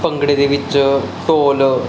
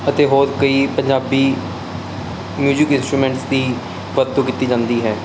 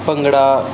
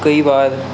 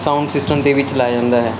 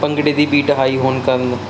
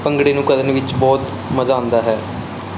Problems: constant background noise